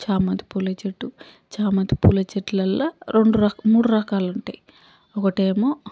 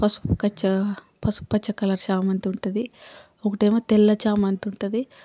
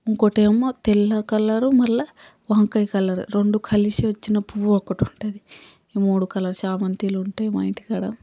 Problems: background sounds at intervals